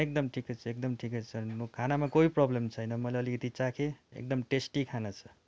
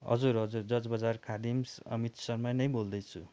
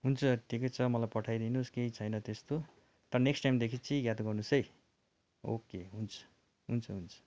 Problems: none marked